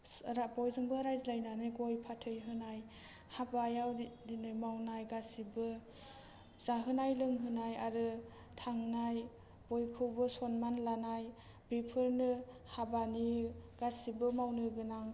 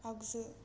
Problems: low volume